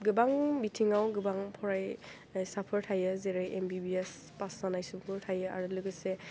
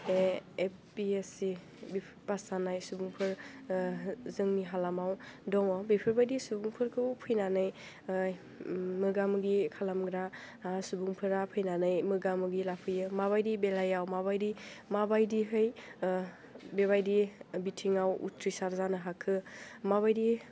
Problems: low volume